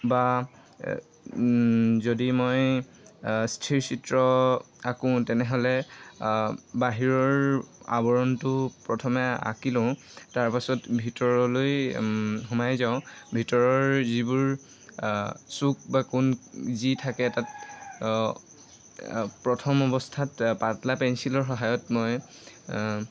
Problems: constant background noise, background conversations at intervals